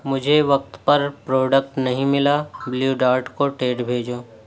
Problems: none marked